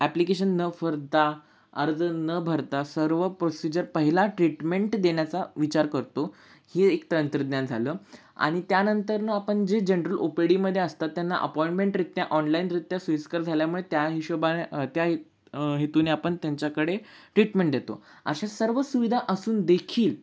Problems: none marked